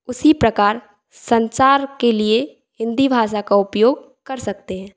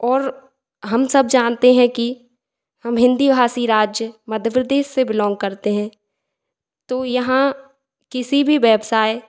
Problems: echo